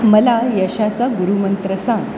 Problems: constant background noise